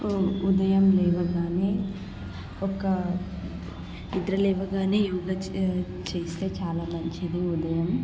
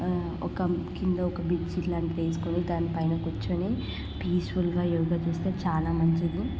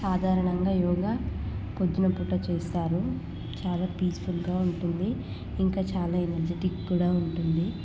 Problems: constant background noise, background conversations at intervals, low volume